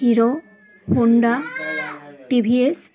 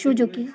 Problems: constant background noise, continuous background conversations